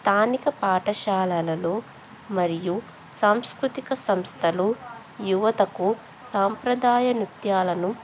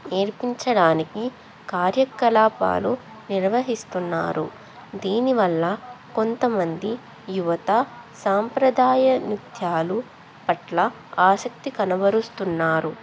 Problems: background conversations at intervals